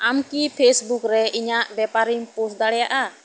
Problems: constant background noise